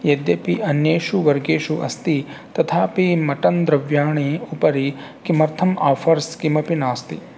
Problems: constant background noise